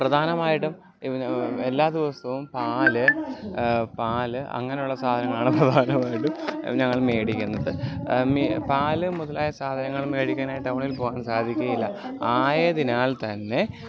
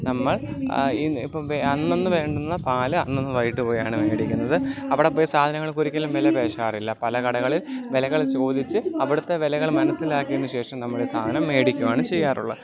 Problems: continuous background conversations